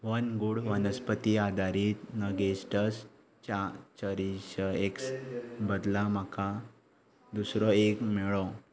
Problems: none marked